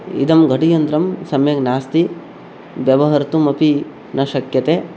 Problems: constant background noise